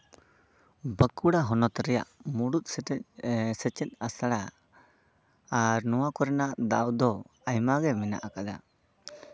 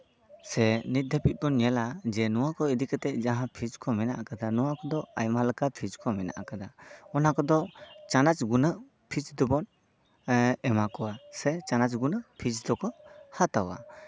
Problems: none marked